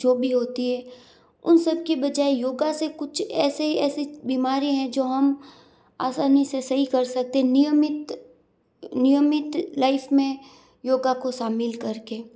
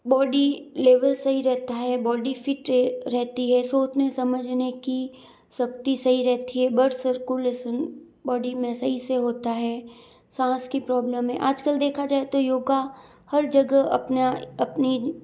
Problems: background sounds at intervals